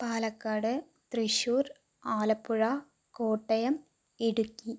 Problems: none marked